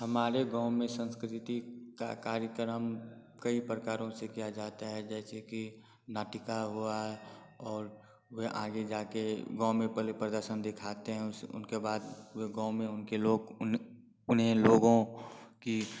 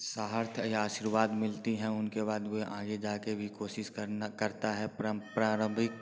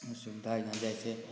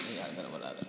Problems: constant background noise